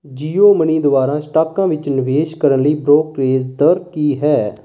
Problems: constant background noise